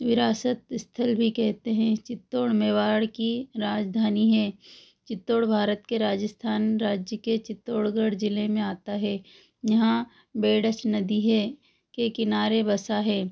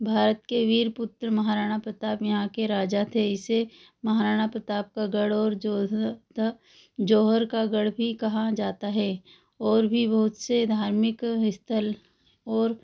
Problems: none marked